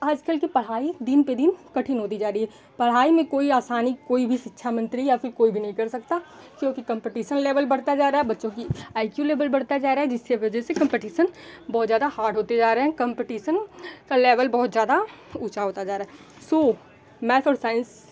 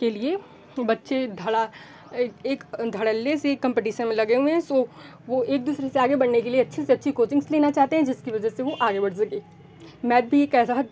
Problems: background sounds at intervals